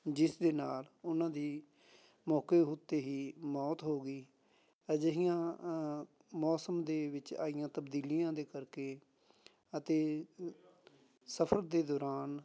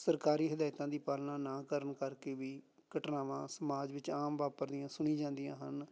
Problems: none marked